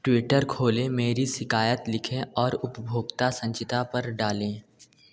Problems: none marked